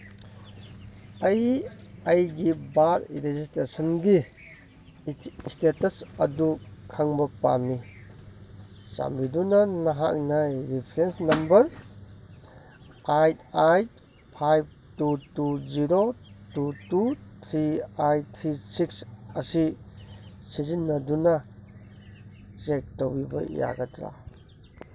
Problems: none marked